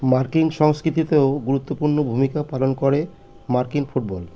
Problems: constant background noise